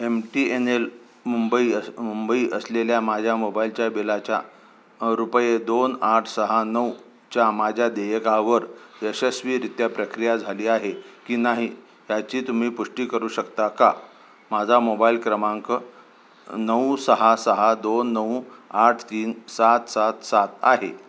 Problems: none marked